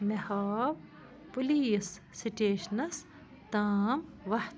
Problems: none marked